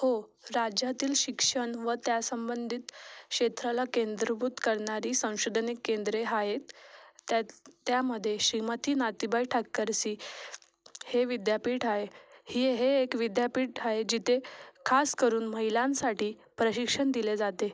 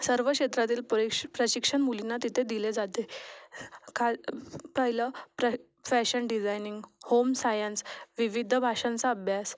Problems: none marked